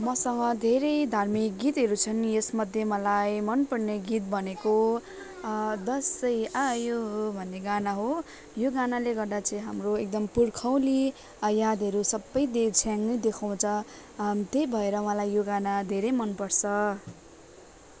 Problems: none marked